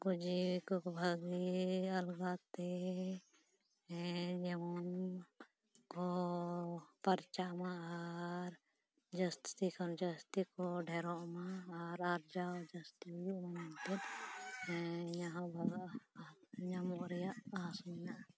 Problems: low volume